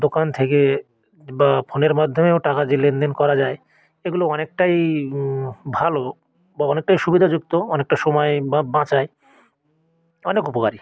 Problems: none marked